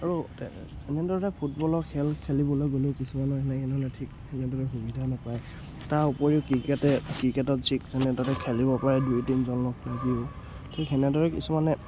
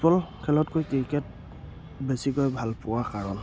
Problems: background sounds at intervals